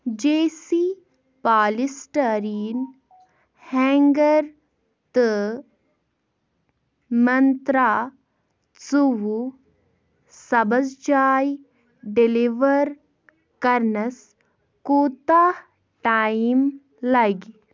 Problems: background sounds at intervals